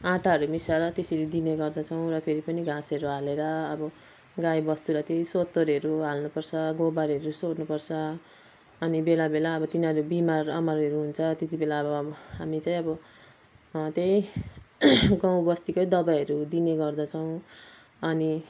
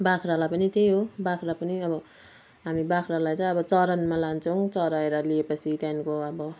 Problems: none marked